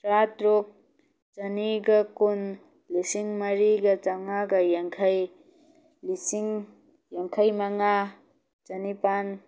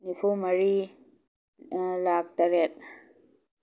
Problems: none marked